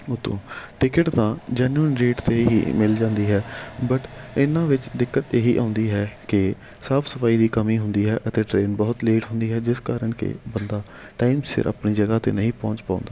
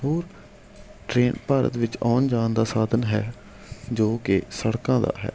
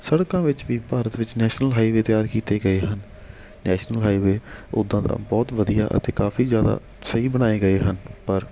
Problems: background sounds at intervals